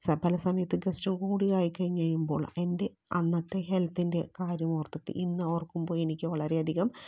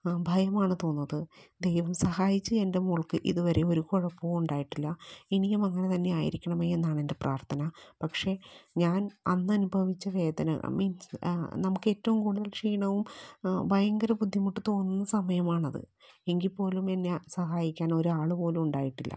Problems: low volume